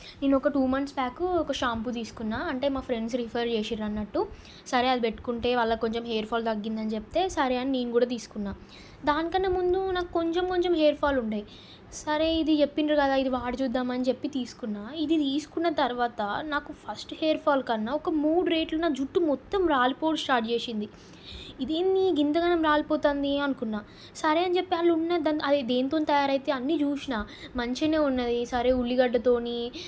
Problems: none marked